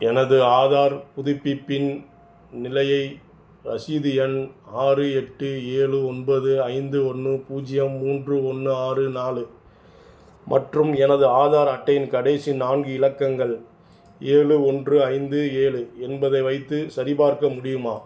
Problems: none marked